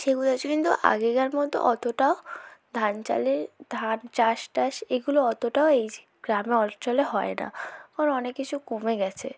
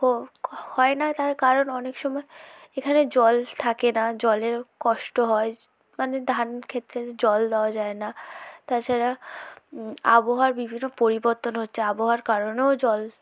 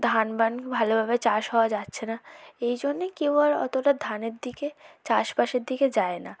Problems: background conversations at intervals, low volume